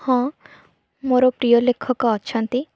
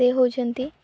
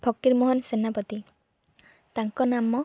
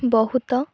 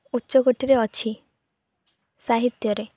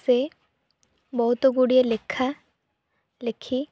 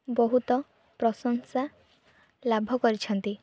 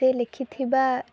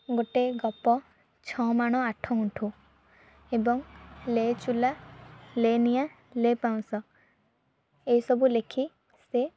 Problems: low volume